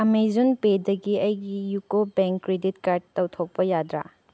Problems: none marked